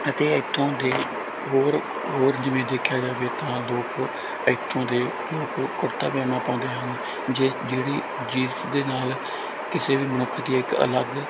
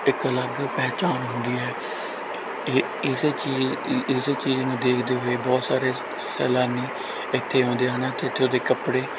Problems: none marked